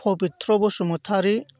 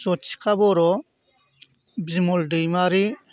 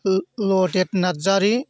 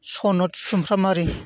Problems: none marked